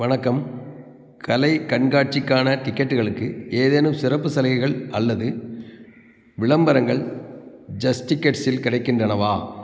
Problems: constant background noise